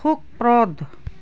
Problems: none marked